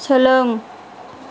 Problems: constant background noise